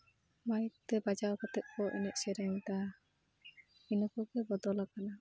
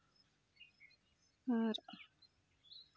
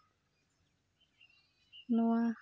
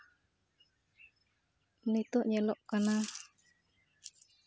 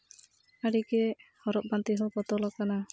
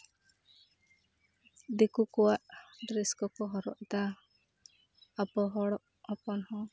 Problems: none marked